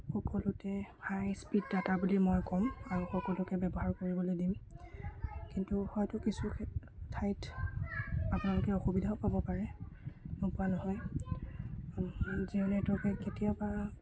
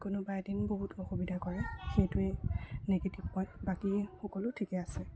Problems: background sounds at intervals, low volume